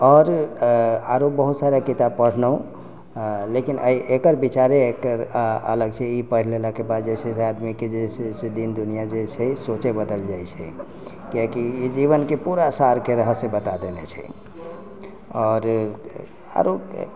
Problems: background sounds at intervals